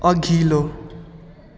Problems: constant background noise